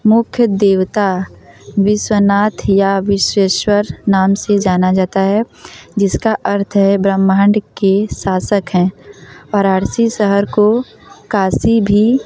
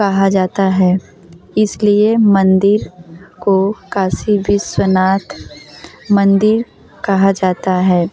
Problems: continuous background conversations